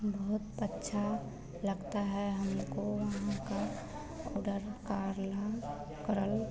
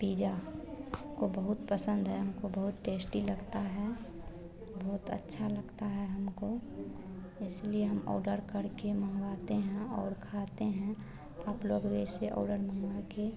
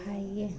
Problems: constant background noise, background conversations at intervals